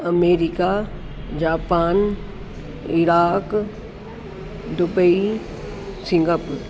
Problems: constant background noise